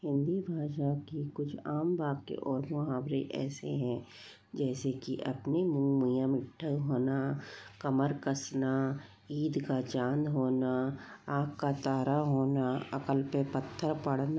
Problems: low volume